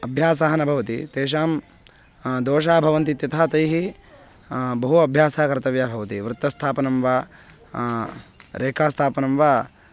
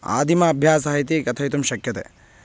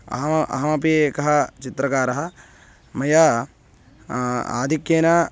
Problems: constant background noise